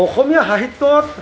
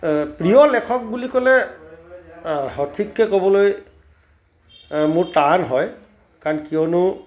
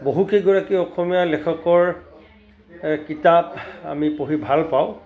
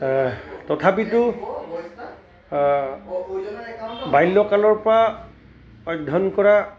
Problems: constant background noise, continuous background conversations